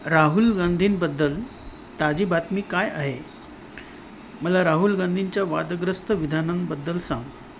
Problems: none marked